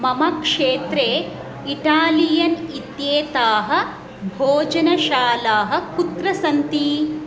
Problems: none marked